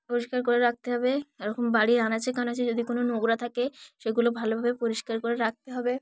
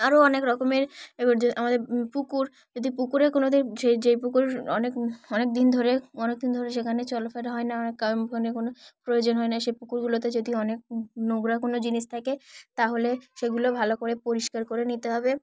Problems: background sounds at intervals